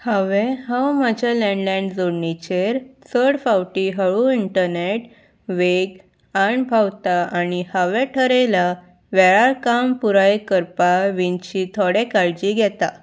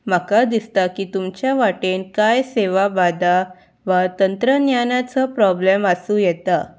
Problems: background sounds at intervals